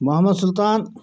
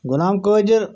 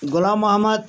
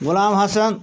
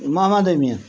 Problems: background sounds at intervals